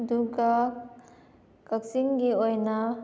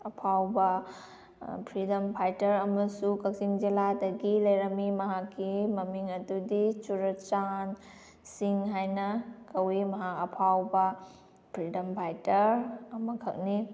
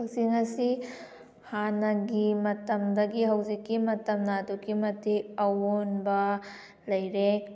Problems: background sounds at intervals